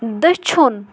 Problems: background sounds at intervals